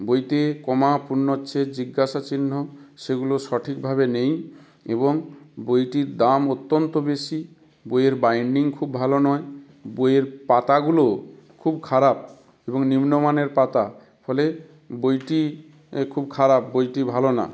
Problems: background sounds at intervals